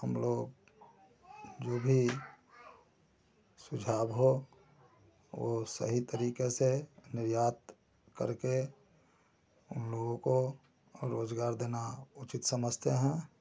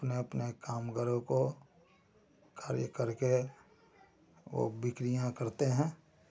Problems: constant background noise